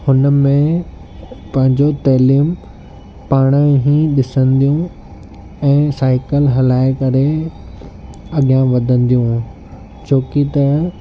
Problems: constant background noise, low volume